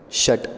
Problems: constant background noise